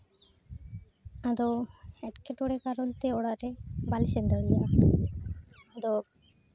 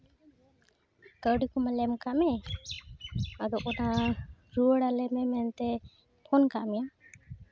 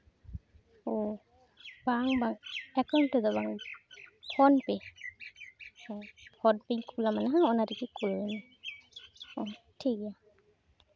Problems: background sounds at intervals